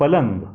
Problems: background sounds at intervals